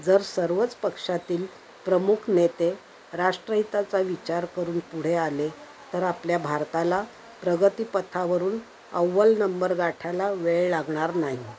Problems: constant background noise, background conversations at intervals